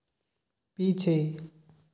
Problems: none marked